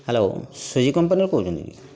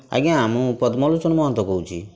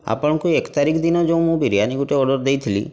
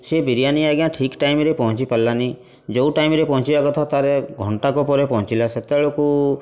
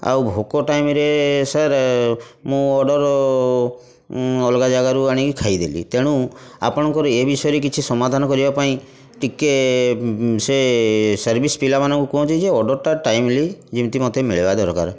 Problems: constant background noise